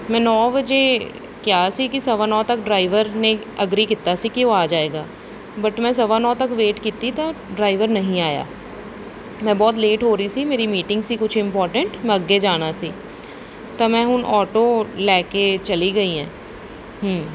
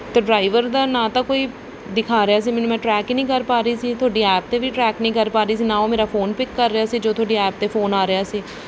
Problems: background sounds at intervals